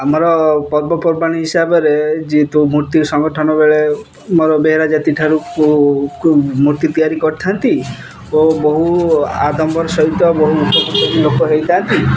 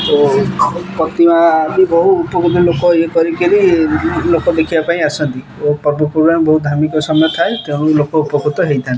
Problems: none marked